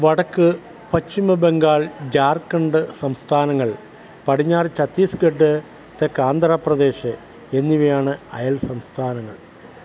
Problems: none marked